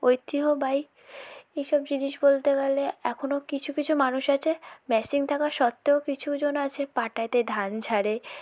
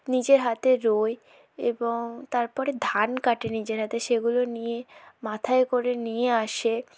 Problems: background conversations at intervals, low volume